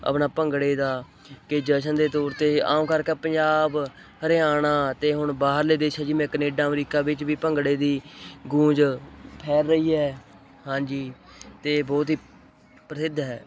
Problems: constant background noise